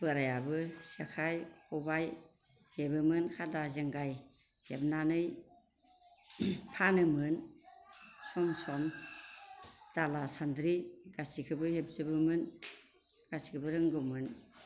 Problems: constant background noise